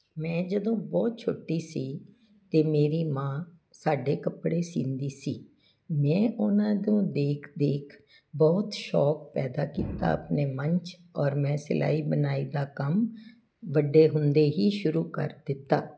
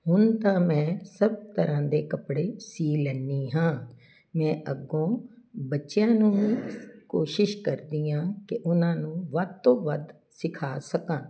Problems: none marked